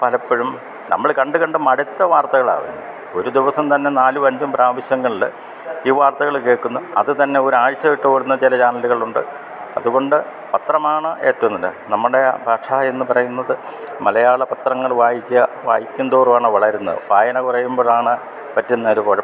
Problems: constant background noise